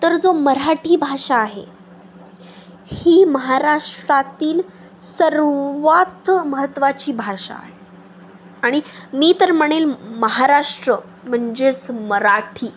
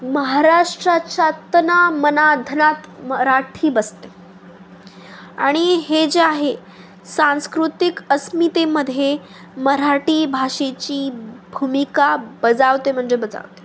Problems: constant background noise